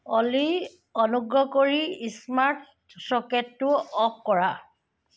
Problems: background sounds at intervals